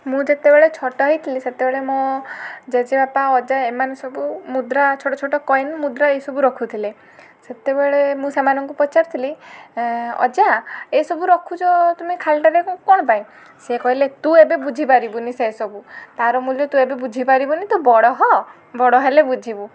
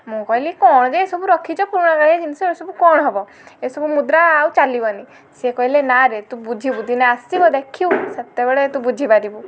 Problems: constant background noise